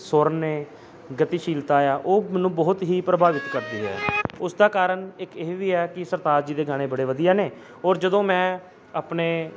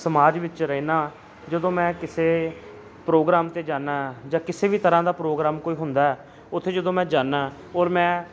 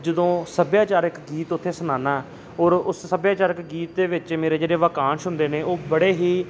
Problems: constant background noise